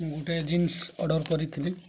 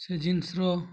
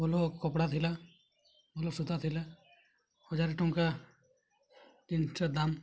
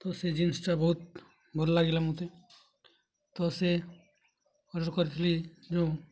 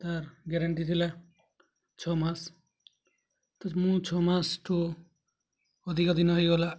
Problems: low volume